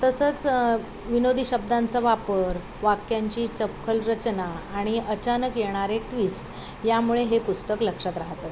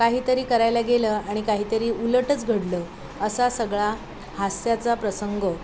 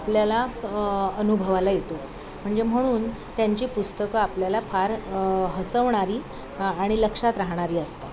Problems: constant background noise, continuous background conversations